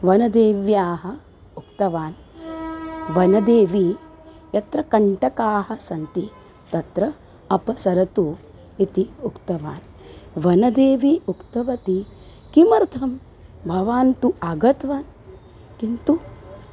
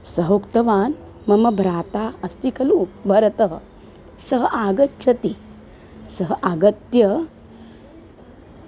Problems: constant background noise